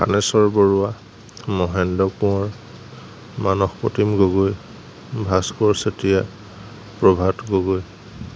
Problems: none marked